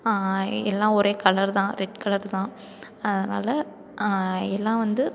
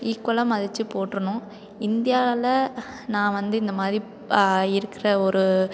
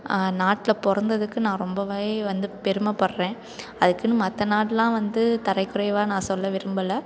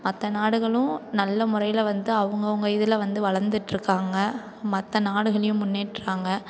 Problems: continuous background conversations